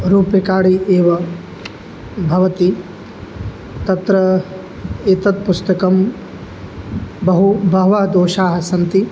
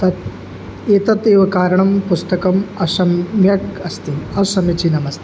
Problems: background sounds at intervals